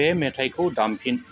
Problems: constant background noise